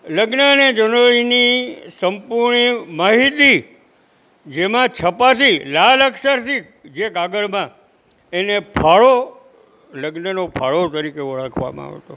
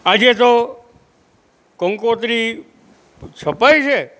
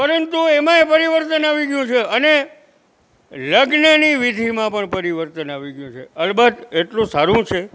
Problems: none marked